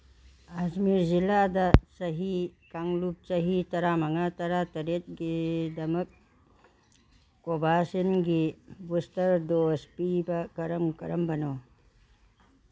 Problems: background sounds at intervals